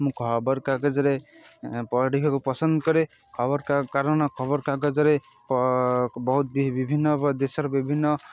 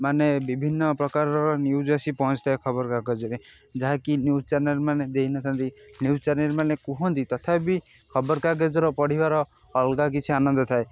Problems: constant background noise